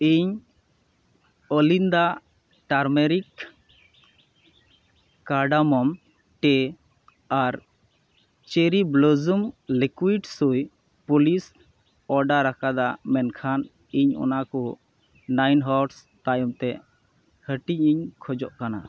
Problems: none marked